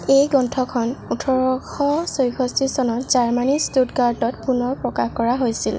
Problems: none marked